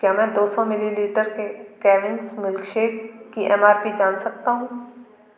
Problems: background sounds at intervals, echo